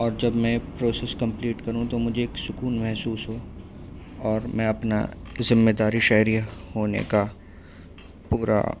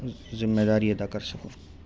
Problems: constant background noise